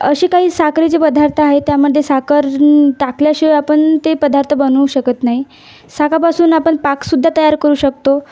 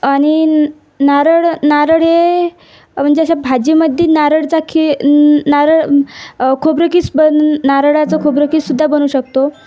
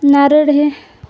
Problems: none marked